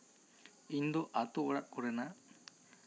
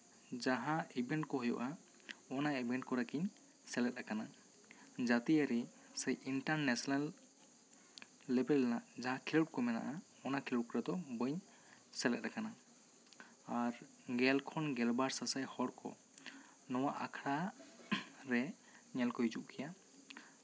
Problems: constant background noise, background conversations at intervals